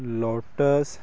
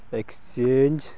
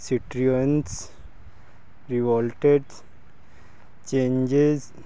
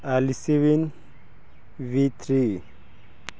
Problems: none marked